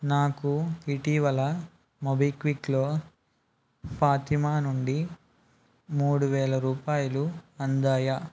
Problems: none marked